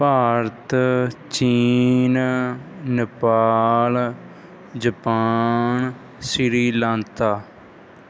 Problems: background sounds at intervals